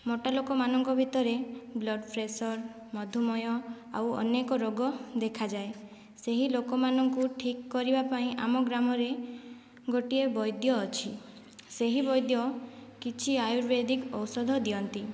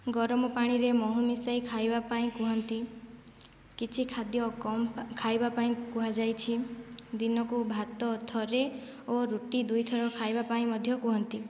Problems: background sounds at intervals, low volume